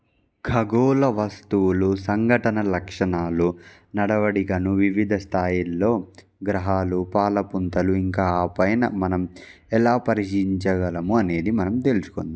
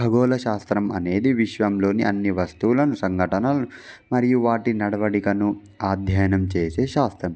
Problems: background sounds at intervals